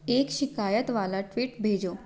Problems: background sounds at intervals